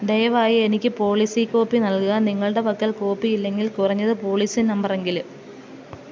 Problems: none marked